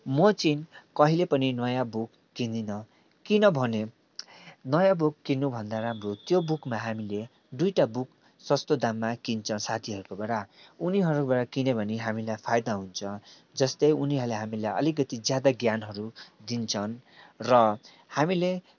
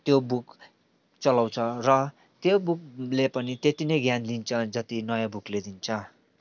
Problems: background sounds at intervals